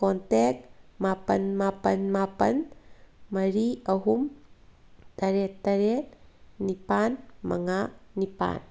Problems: background sounds at intervals